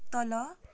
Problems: none marked